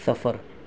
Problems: none marked